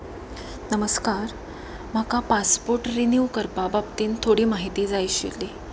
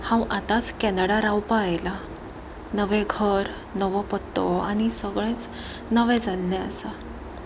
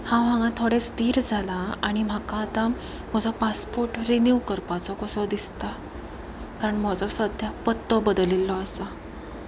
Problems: constant background noise, continuous background conversations